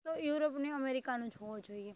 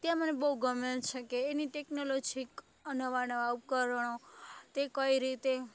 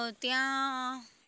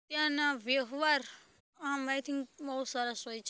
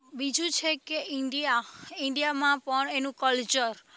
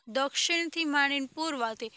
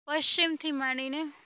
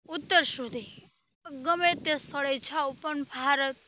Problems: none marked